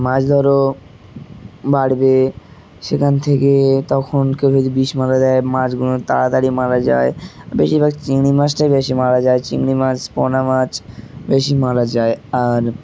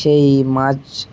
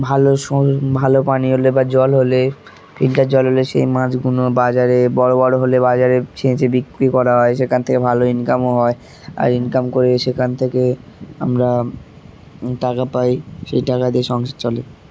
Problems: constant background noise, continuous background conversations